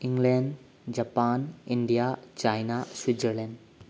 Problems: low volume